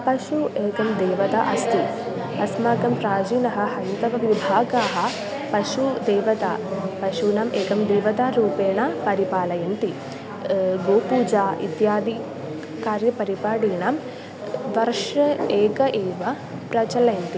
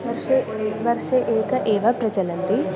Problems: constant background noise, continuous background conversations